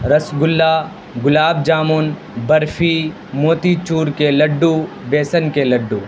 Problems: constant background noise